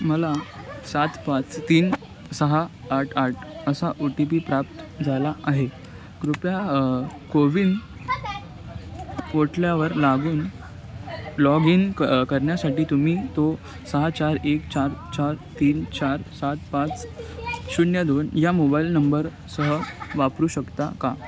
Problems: continuous background conversations